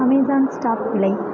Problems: background sounds at intervals